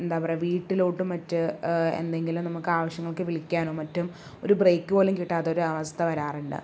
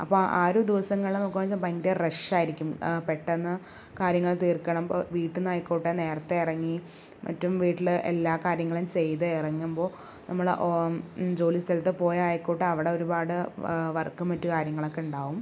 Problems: low volume